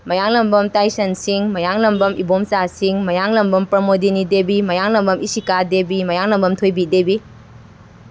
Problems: constant background noise